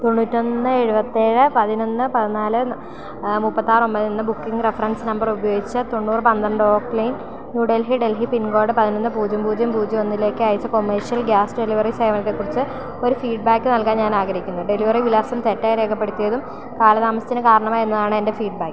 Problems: constant background noise